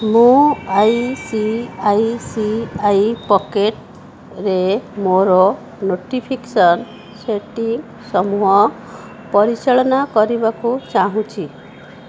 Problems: background sounds at intervals